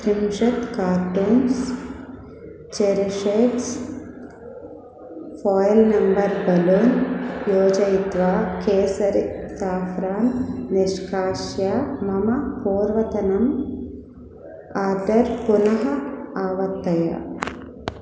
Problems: none marked